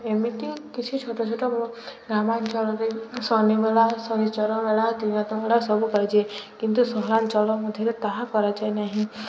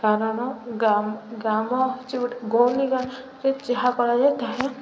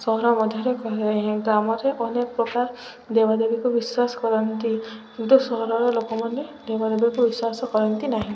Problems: none marked